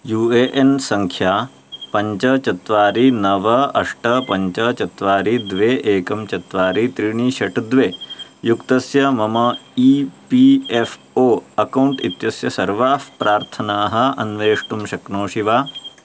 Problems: none marked